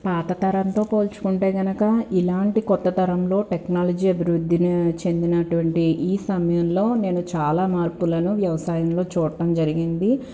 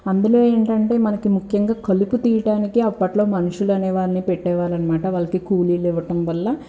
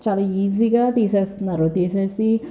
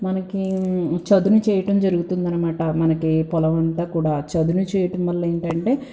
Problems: background sounds at intervals